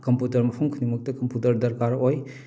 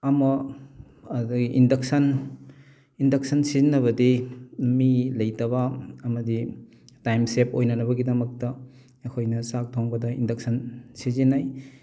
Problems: background sounds at intervals